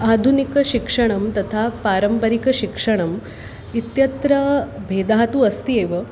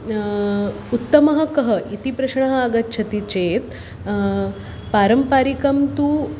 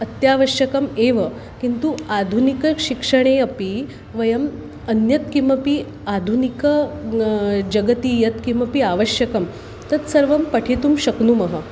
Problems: constant background noise